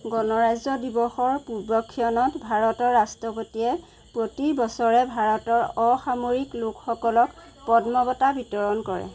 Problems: constant background noise